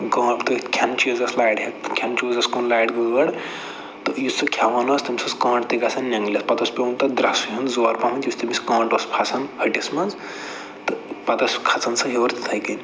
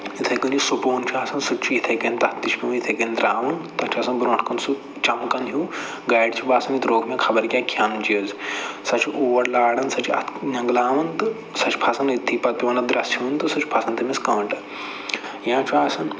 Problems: low volume